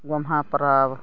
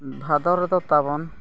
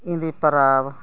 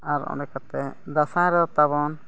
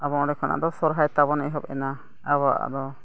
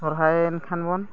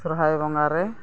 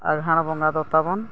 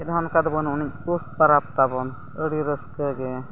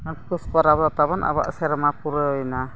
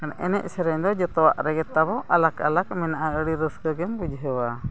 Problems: background sounds at intervals, continuous background conversations